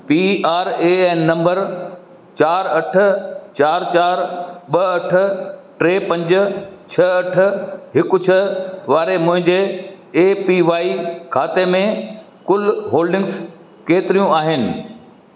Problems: constant background noise, echo